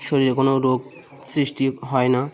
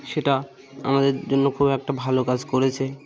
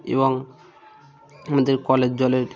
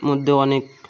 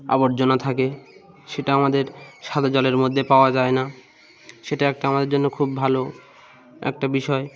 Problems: constant background noise